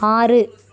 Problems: constant background noise, continuous background conversations